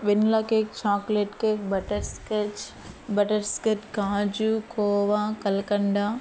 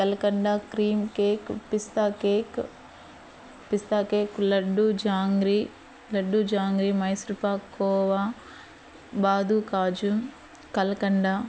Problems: background sounds at intervals